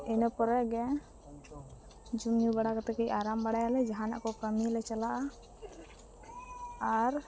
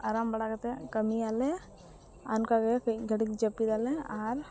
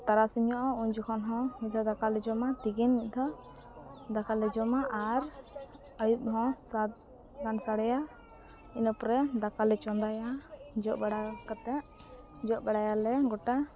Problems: none marked